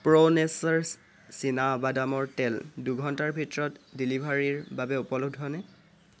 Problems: constant background noise